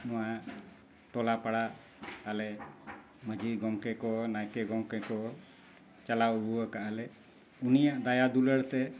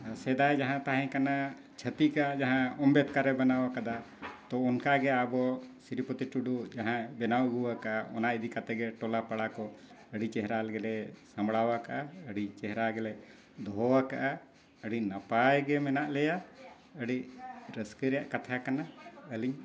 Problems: constant background noise